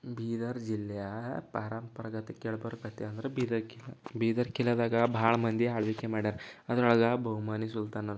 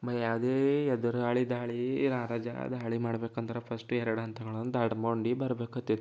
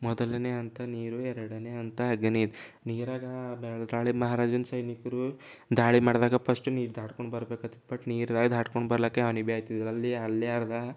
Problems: none marked